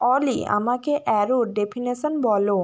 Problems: constant background noise